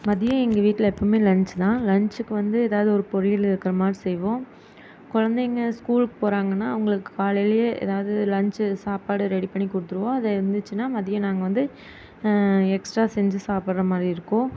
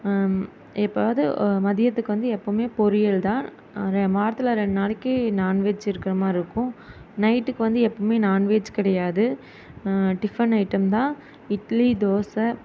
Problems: constant background noise